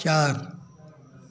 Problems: constant background noise